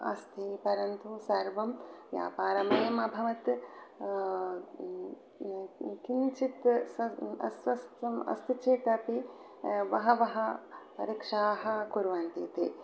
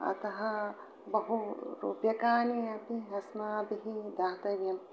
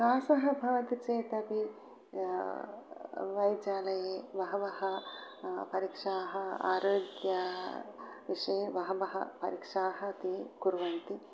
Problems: none marked